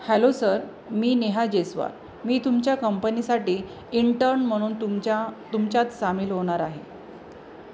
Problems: none marked